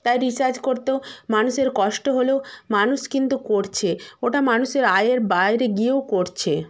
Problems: constant background noise